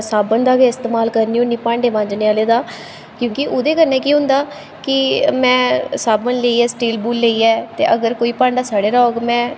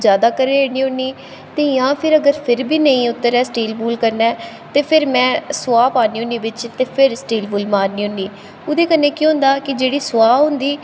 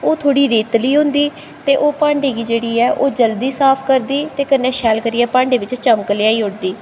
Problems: constant background noise, background conversations at intervals, echo